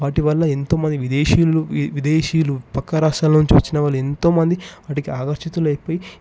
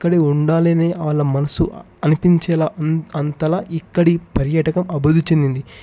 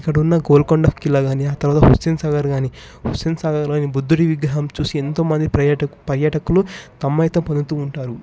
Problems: background sounds at intervals